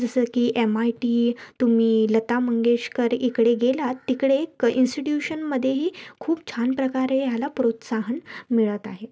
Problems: none marked